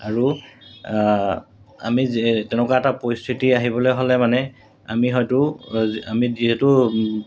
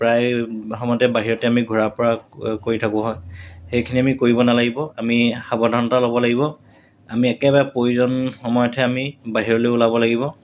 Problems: constant background noise